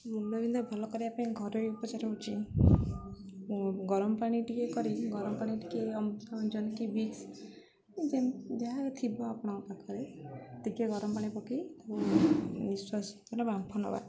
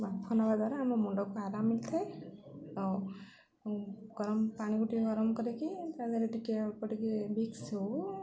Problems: none marked